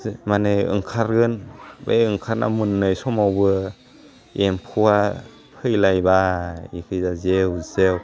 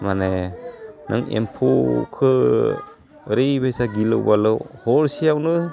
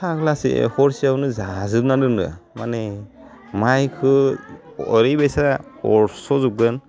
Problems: none marked